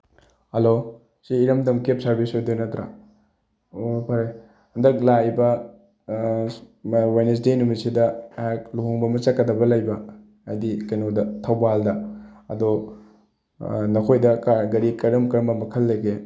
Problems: none marked